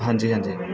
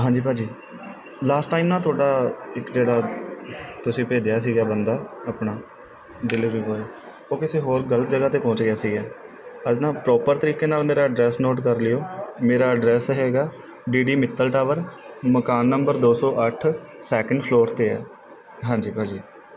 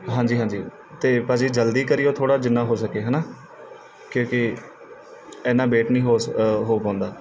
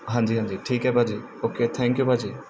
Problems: background sounds at intervals